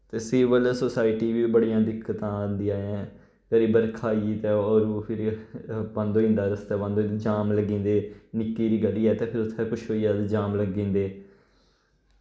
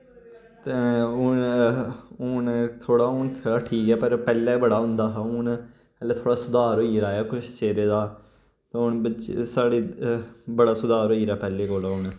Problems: none marked